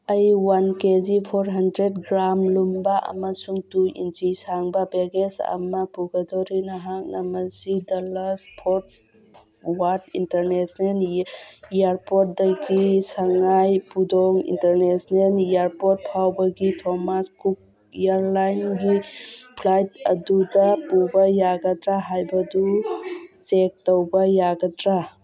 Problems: background conversations at intervals